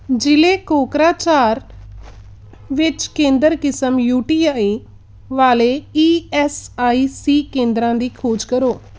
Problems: background sounds at intervals